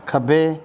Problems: background sounds at intervals